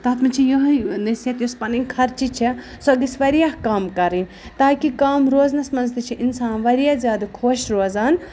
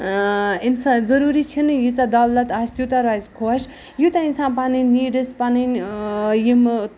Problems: none marked